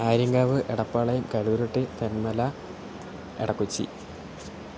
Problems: constant background noise, low volume